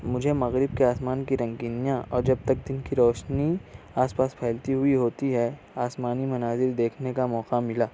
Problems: constant background noise